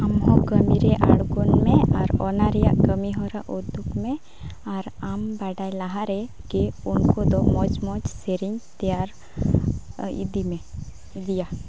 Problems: none marked